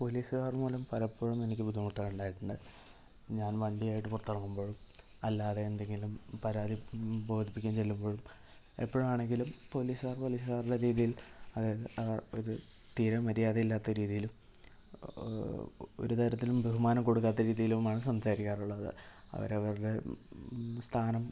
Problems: low volume